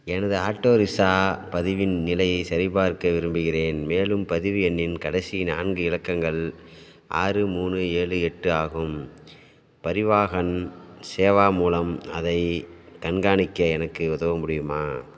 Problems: background sounds at intervals